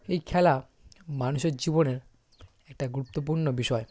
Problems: background sounds at intervals